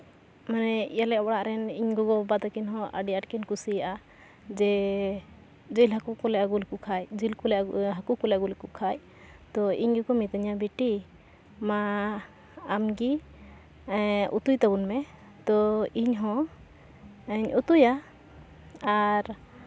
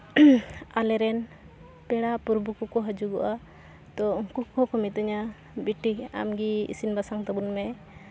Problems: constant background noise, background conversations at intervals